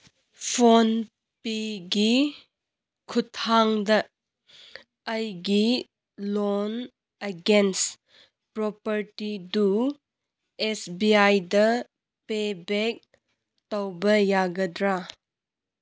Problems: none marked